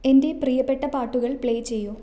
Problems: none marked